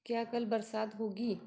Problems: background sounds at intervals